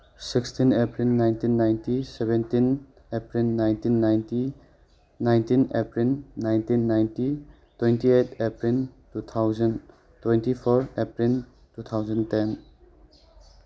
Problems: background conversations at intervals